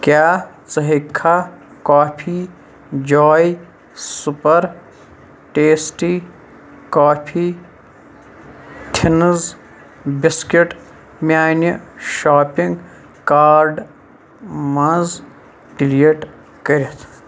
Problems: constant background noise